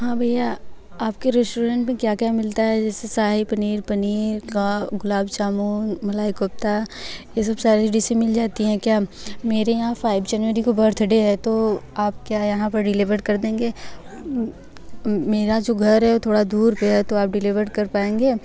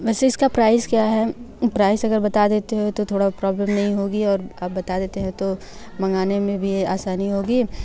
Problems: none marked